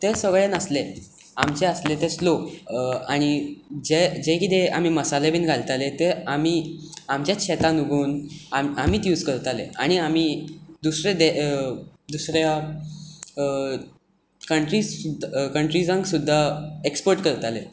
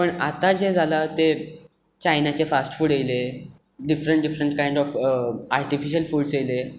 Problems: background sounds at intervals